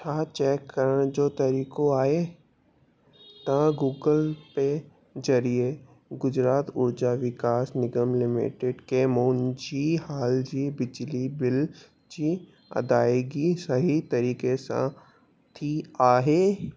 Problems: constant background noise